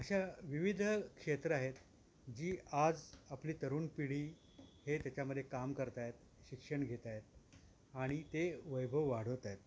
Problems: constant background noise